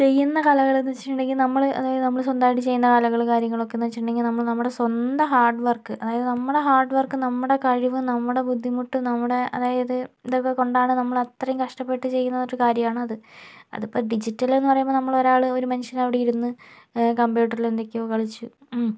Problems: none marked